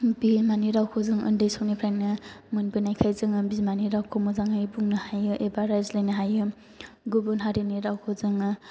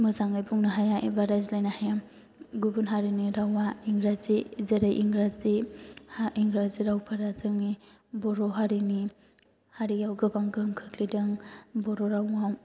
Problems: none marked